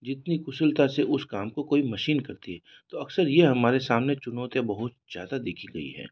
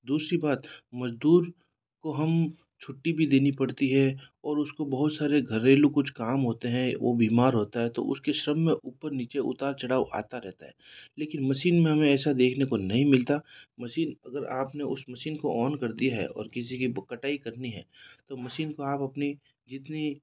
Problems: none marked